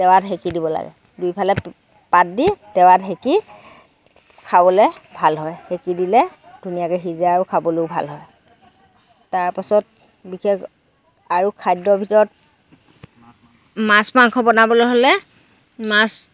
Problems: none marked